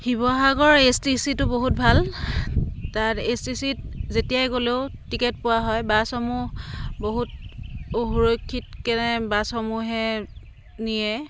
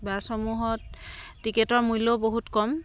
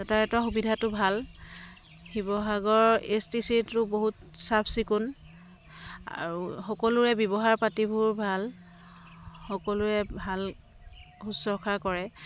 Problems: constant background noise